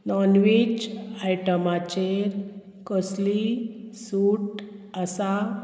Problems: none marked